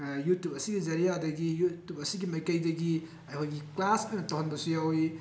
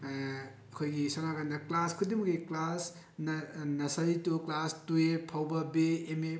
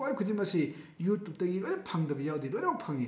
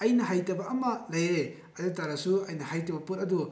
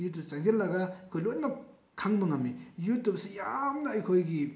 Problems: none marked